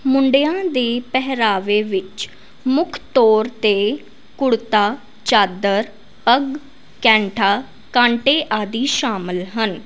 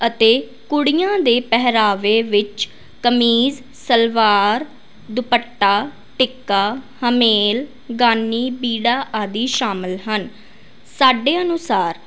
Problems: constant background noise